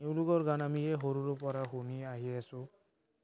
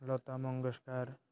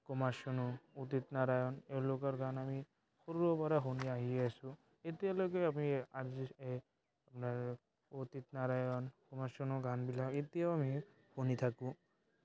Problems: background sounds at intervals, background conversations at intervals